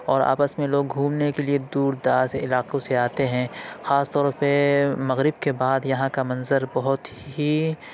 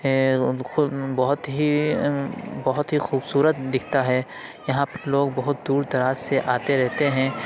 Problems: constant background noise, background conversations at intervals